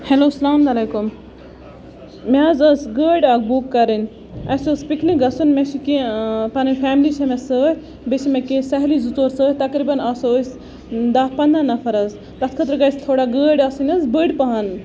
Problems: constant background noise, background conversations at intervals